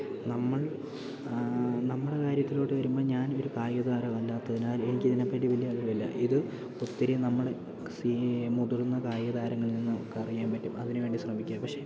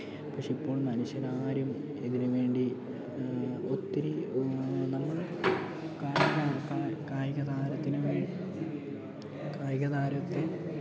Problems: background sounds at intervals, low volume